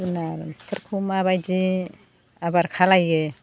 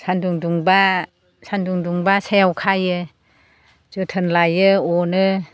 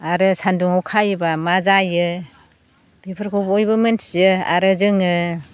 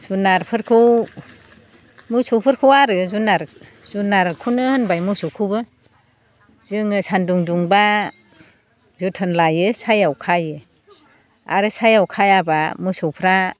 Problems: constant background noise